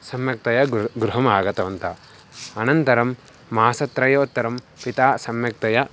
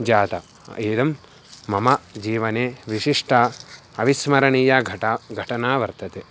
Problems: none marked